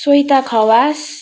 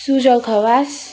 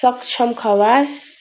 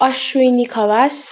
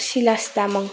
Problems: constant background noise